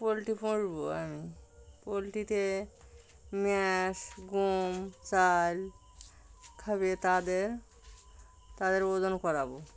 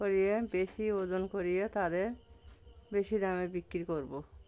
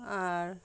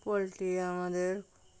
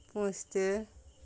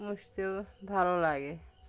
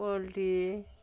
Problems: constant background noise